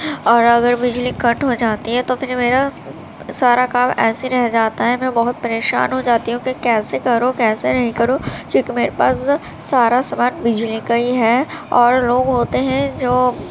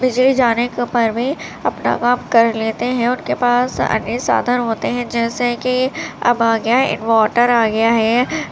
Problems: constant background noise